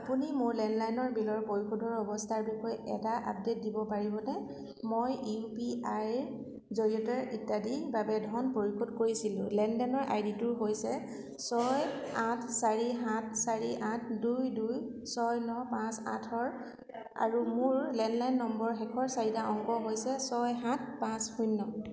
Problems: none marked